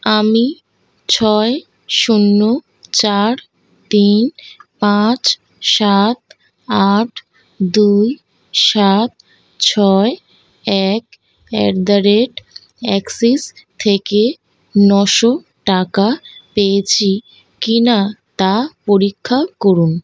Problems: constant background noise